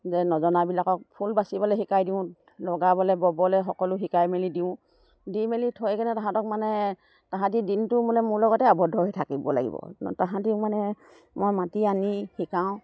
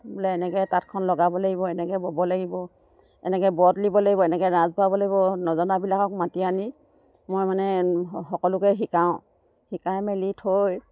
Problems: none marked